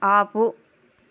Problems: none marked